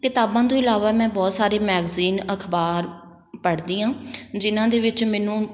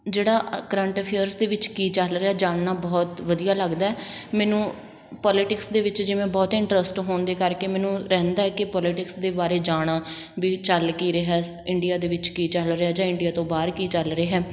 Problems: constant background noise